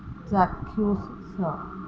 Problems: constant background noise